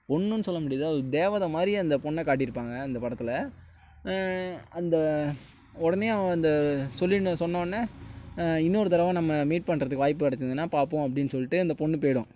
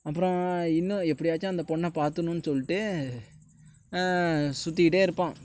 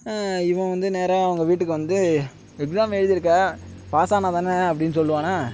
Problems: background sounds at intervals